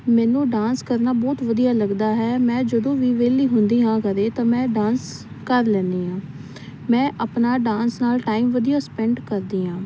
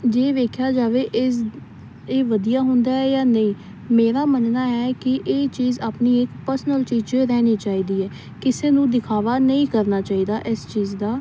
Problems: none marked